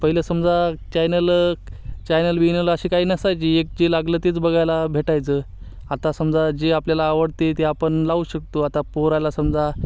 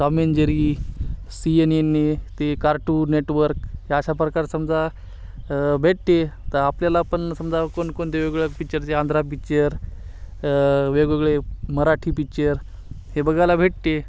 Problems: constant background noise, background conversations at intervals